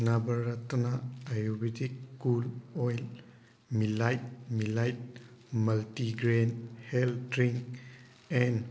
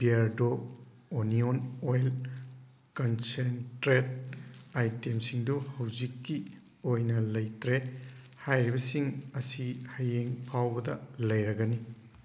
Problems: background sounds at intervals